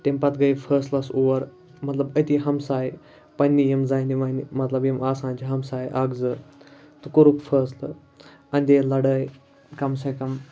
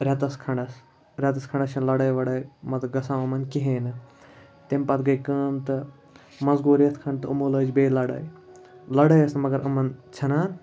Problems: none marked